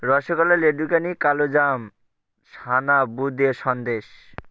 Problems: none marked